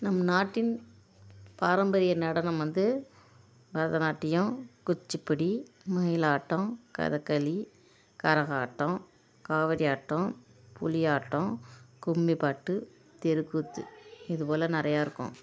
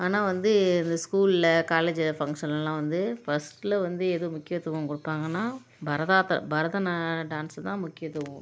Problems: constant background noise